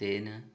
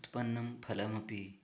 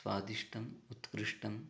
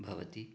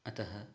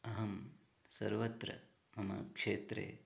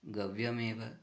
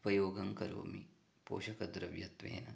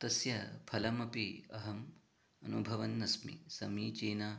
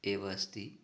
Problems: background conversations at intervals, low volume